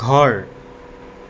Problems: constant background noise